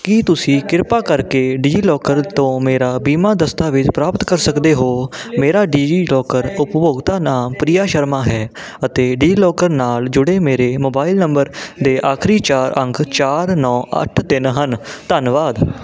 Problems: continuous background conversations